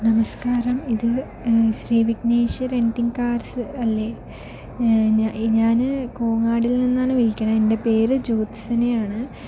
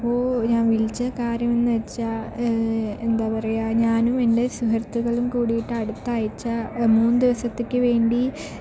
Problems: none marked